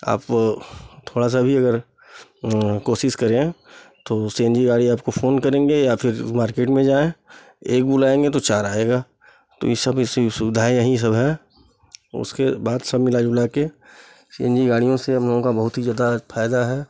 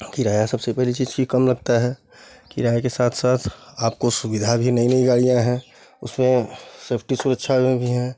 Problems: background sounds at intervals